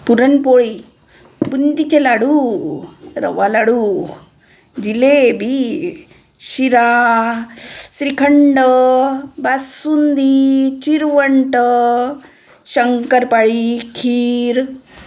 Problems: background sounds at intervals